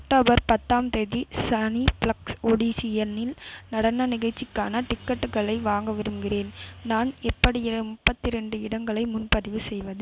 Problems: constant background noise